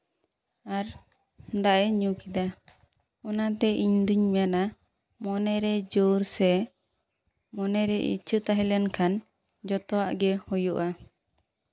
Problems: none marked